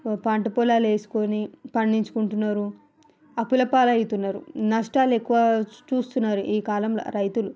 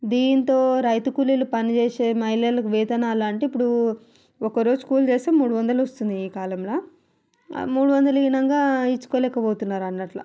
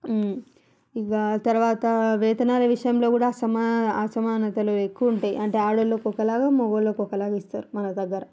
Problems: none marked